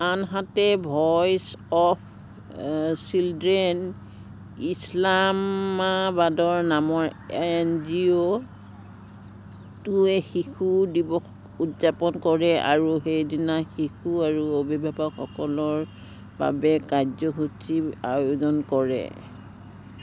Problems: background sounds at intervals